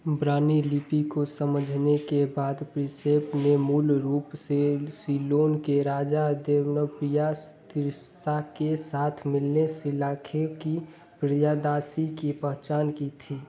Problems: background sounds at intervals, background conversations at intervals